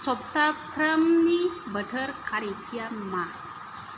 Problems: constant background noise